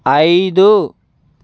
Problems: constant background noise